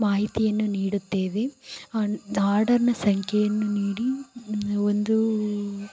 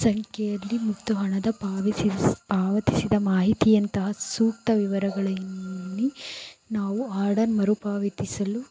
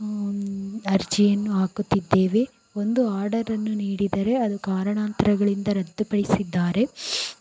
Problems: background sounds at intervals